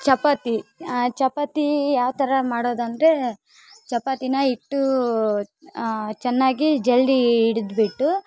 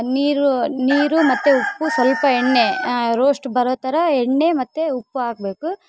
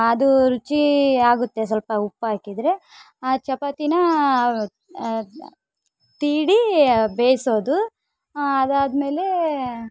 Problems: background sounds at intervals